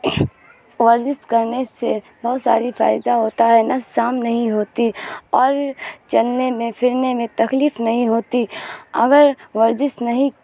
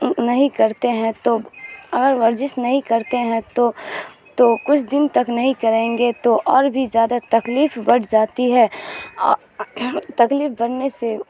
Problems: constant background noise